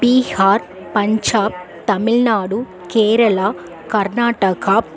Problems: continuous background conversations